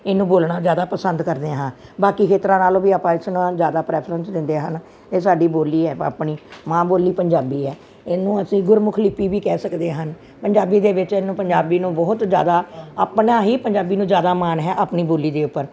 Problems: none marked